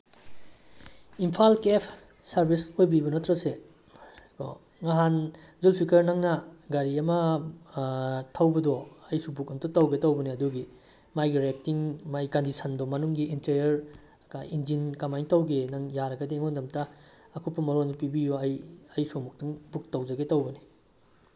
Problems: none marked